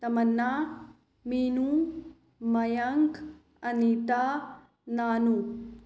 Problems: none marked